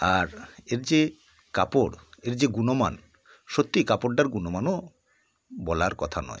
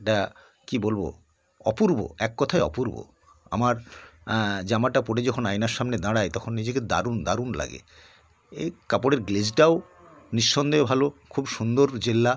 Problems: background sounds at intervals